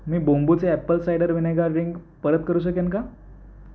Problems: background sounds at intervals